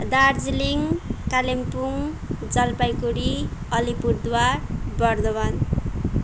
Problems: none marked